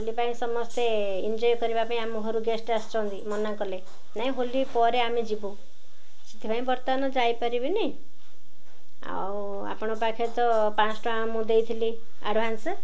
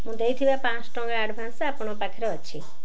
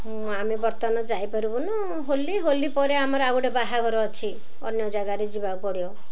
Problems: none marked